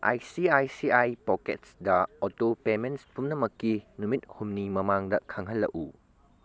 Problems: none marked